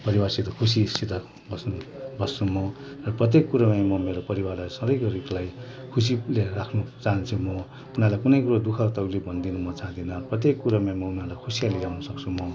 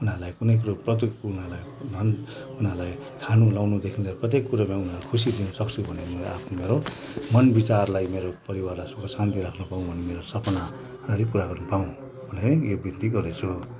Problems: constant background noise